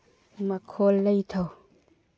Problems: low volume